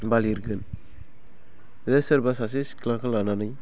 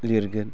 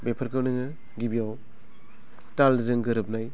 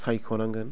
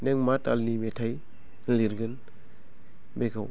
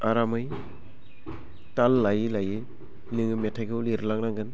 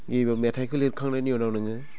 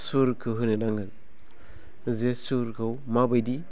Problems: low volume